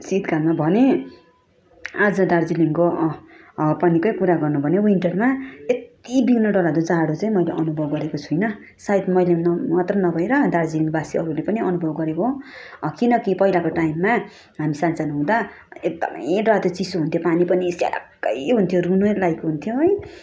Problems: none marked